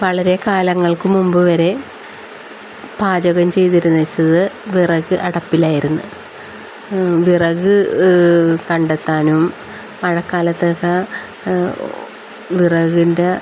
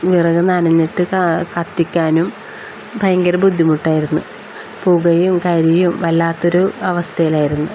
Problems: constant background noise